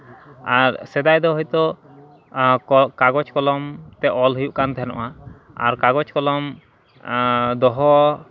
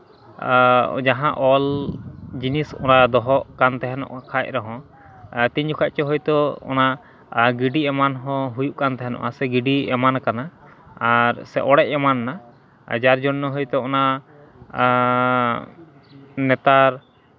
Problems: background sounds at intervals